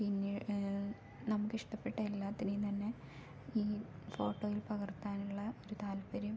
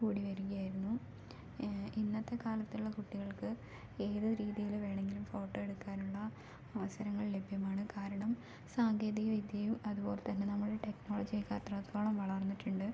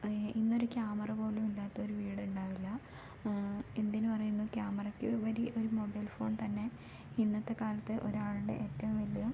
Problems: low volume